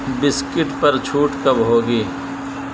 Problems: constant background noise